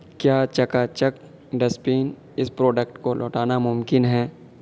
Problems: constant background noise